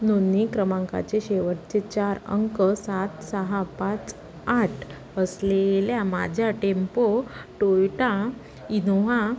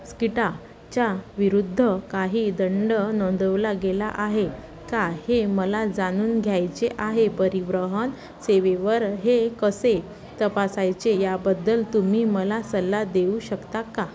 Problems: constant background noise, continuous background conversations